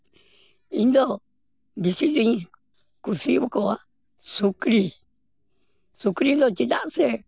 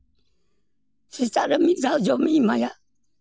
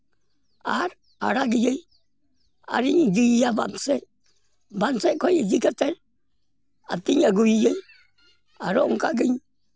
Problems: none marked